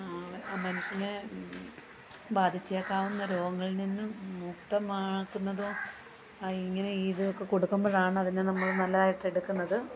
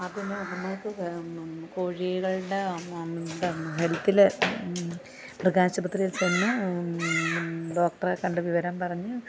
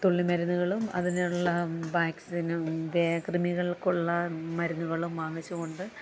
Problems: background sounds at intervals, low volume